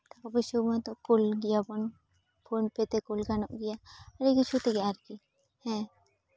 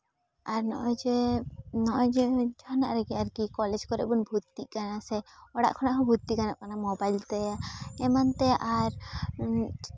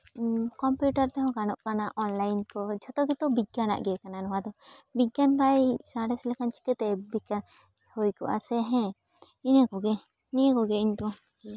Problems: background sounds at intervals